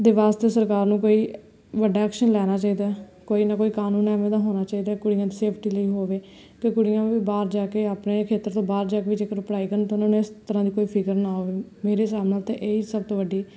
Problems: none marked